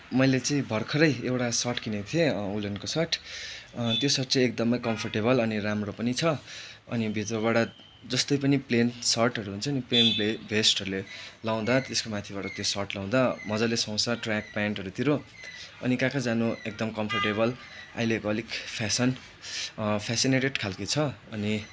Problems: constant background noise